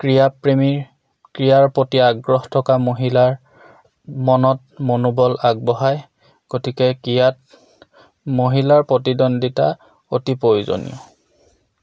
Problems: none marked